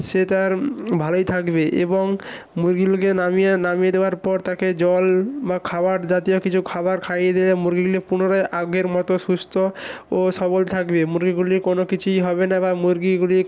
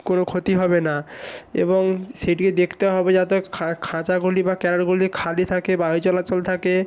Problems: constant background noise